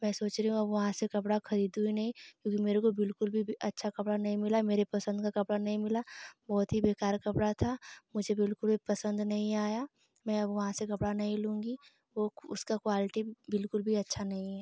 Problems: constant background noise